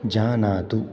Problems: background sounds at intervals